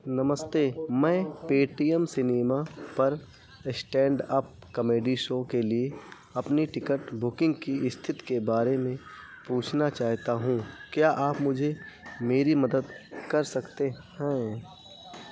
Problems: none marked